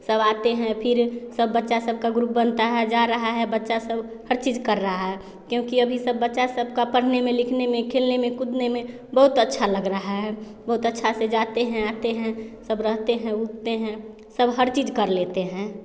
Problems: background sounds at intervals, continuous background conversations